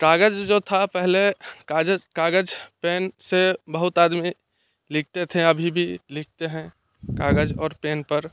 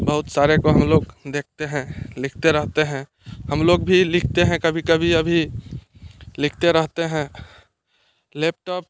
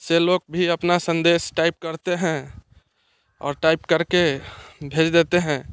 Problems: constant background noise